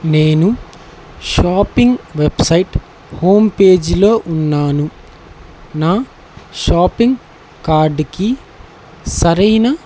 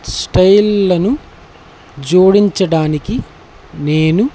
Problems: none marked